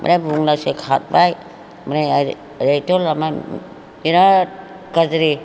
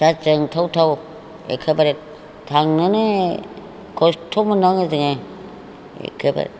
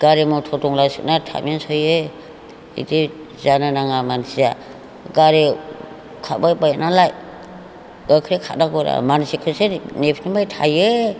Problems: background conversations at intervals